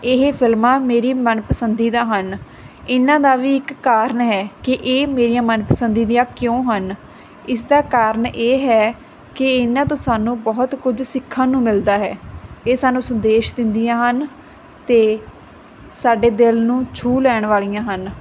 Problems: constant background noise